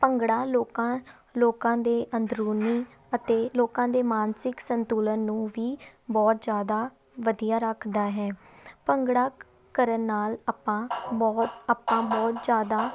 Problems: none marked